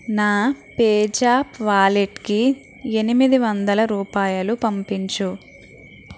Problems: constant background noise